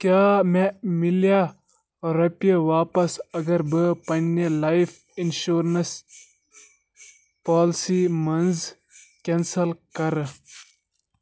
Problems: constant background noise